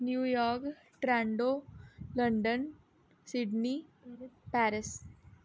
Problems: low volume